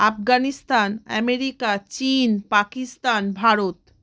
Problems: constant background noise